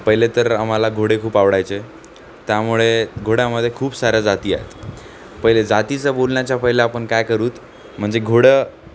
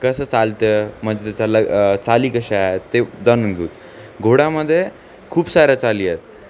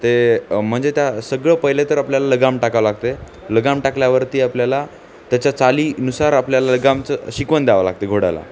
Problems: constant background noise, background conversations at intervals